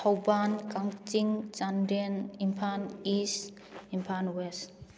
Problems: none marked